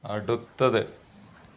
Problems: constant background noise